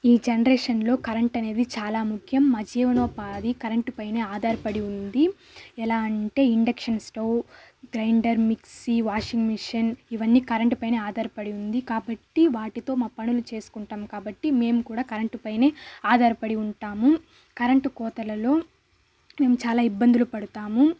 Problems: constant background noise